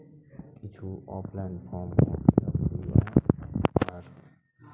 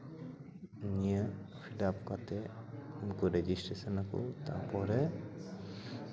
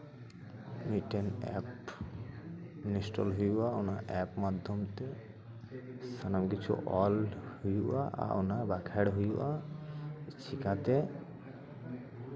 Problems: continuous background conversations, low volume